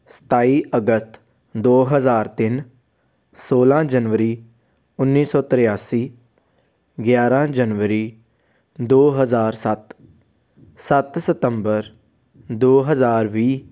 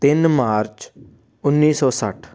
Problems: none marked